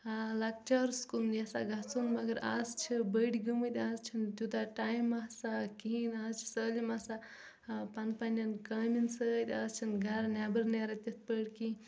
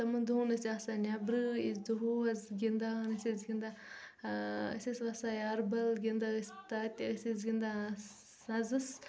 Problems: background sounds at intervals, low volume